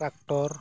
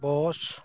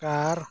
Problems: constant background noise